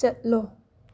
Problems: none marked